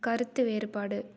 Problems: none marked